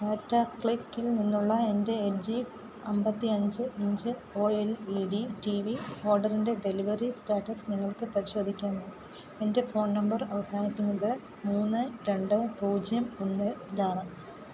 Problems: none marked